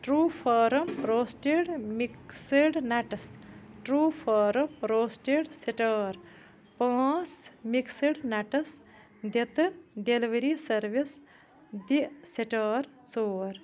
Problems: none marked